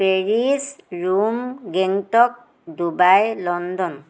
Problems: constant background noise